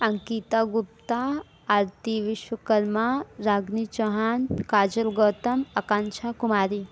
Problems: background sounds at intervals